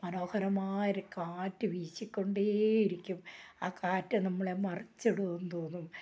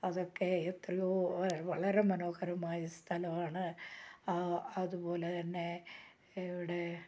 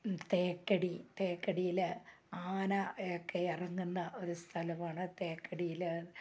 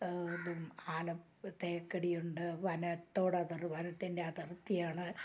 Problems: low volume